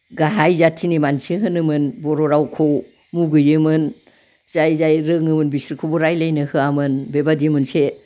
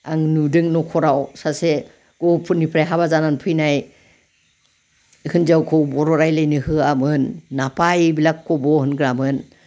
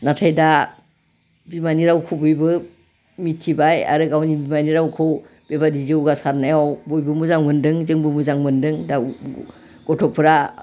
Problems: background conversations at intervals